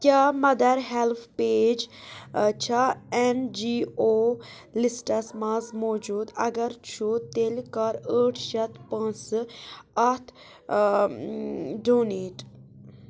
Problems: none marked